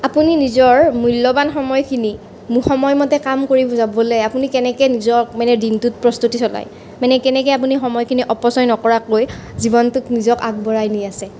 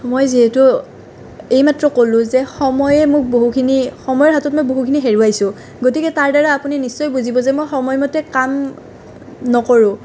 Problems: constant background noise